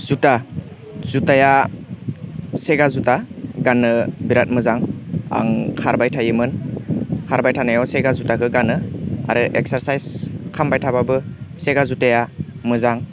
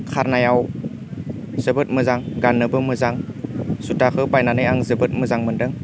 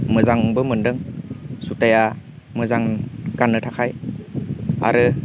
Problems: constant background noise